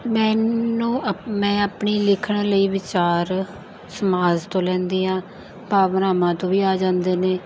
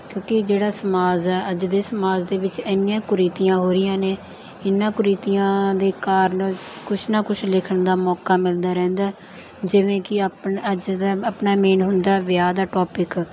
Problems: none marked